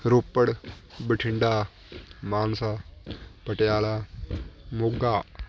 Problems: none marked